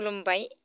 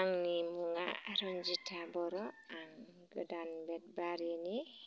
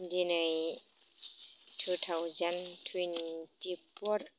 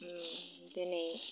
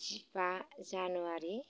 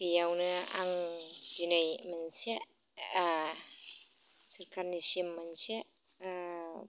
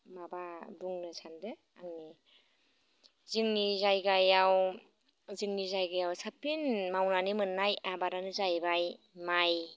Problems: constant background noise